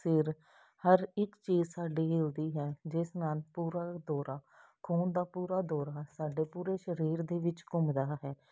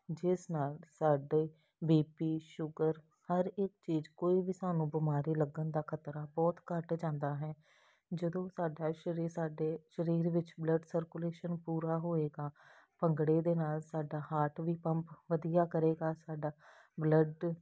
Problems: none marked